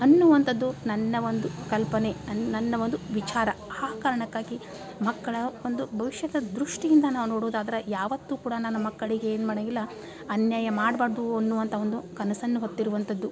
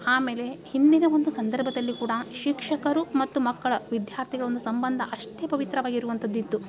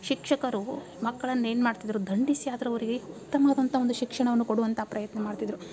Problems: background sounds at intervals